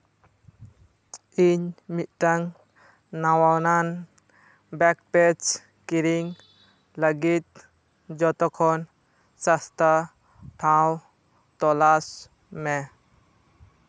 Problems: background sounds at intervals